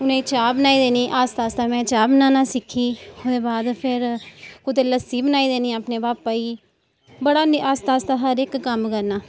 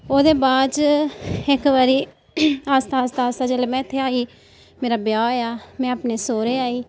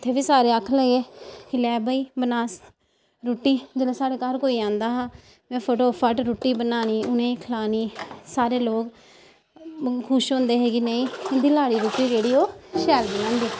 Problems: background sounds at intervals